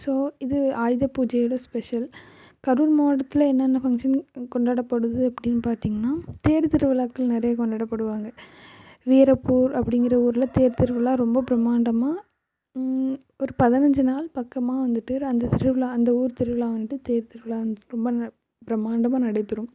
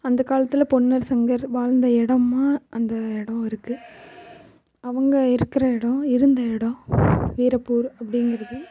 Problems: constant background noise, low volume